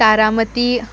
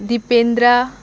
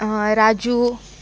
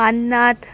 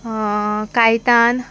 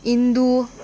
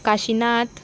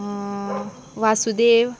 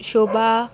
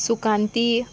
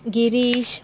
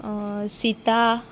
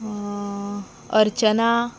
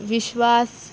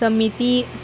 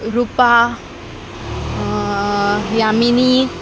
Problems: constant background noise